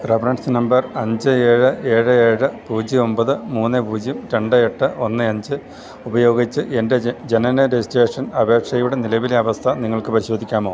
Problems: continuous background conversations, low volume